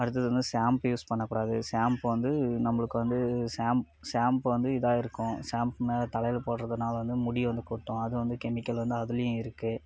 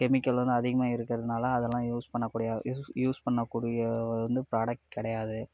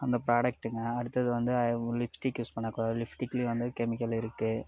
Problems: background sounds at intervals